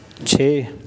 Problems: constant background noise